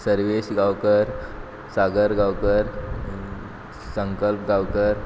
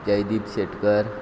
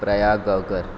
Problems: none marked